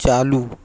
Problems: constant background noise